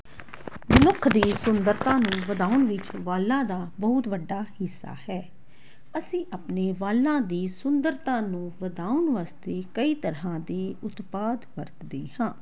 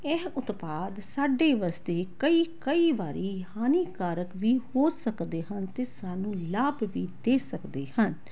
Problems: constant background noise